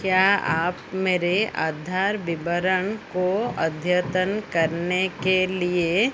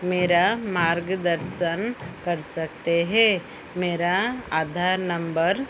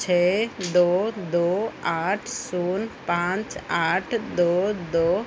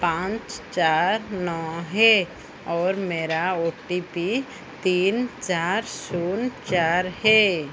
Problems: constant background noise